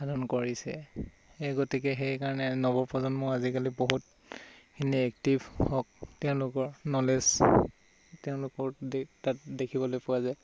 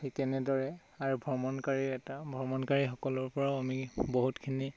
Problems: constant background noise